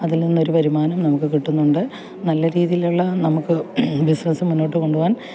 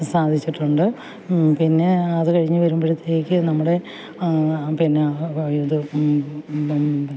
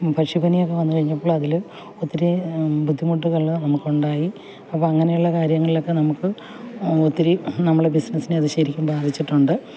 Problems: background sounds at intervals